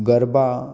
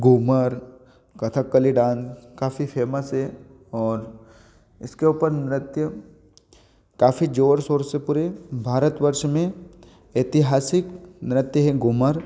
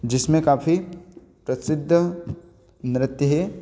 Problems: none marked